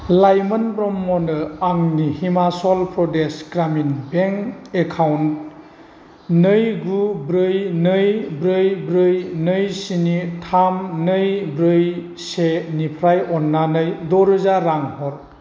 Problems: none marked